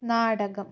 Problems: none marked